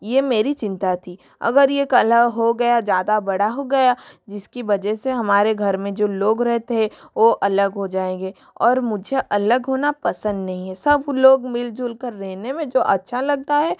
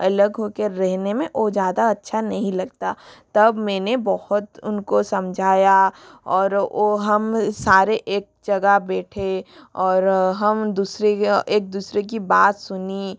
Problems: none marked